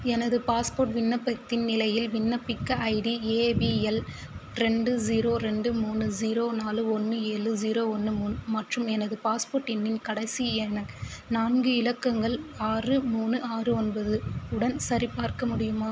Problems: constant background noise